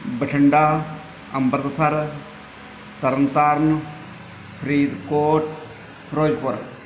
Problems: background sounds at intervals